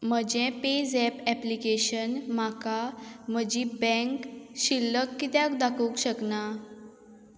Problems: constant background noise